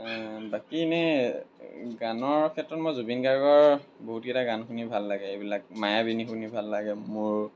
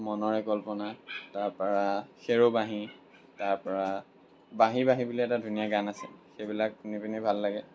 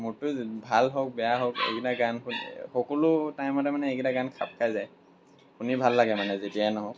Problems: background sounds at intervals